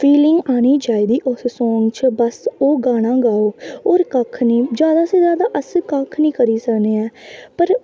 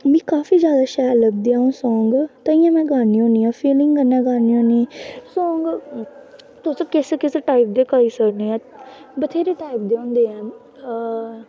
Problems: constant background noise